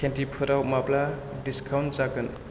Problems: none marked